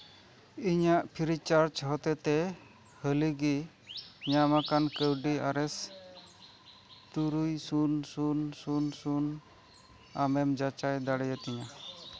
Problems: none marked